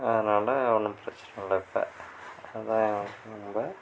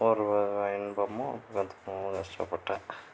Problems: none marked